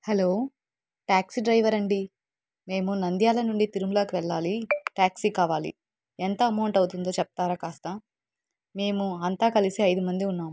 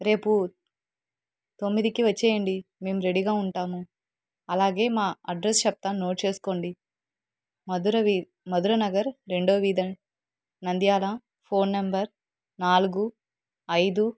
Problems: none marked